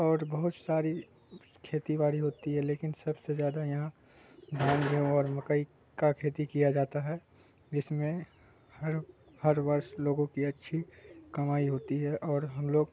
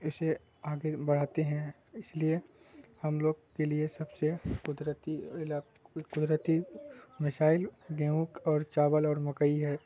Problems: constant background noise